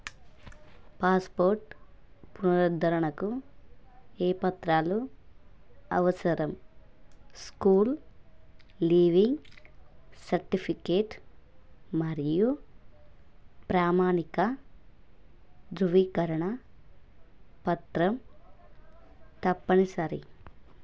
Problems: none marked